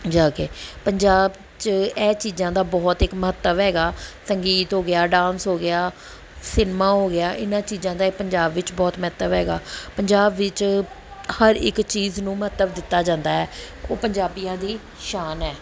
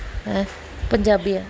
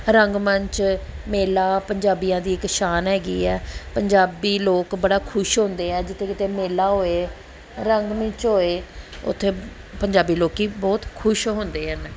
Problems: background sounds at intervals, background conversations at intervals